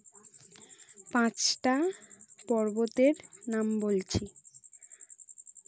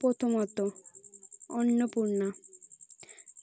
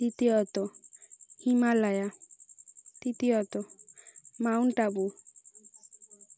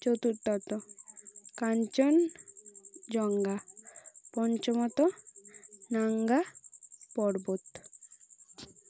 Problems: none marked